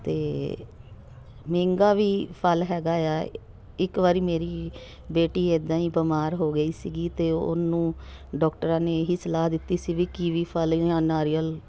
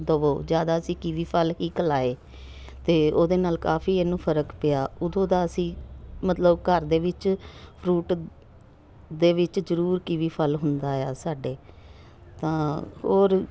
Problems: background sounds at intervals